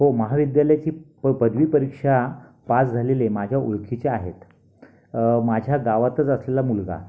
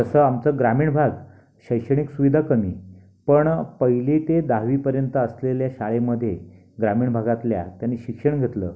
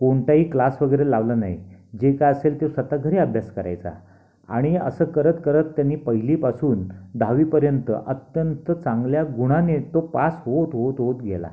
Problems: background sounds at intervals